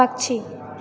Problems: constant background noise